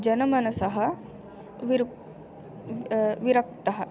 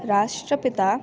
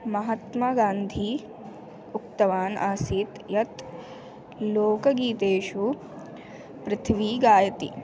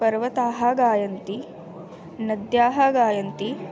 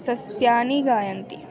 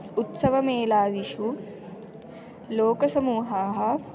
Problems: none marked